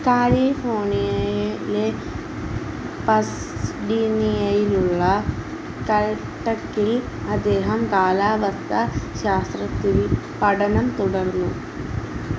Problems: constant background noise